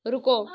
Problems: none marked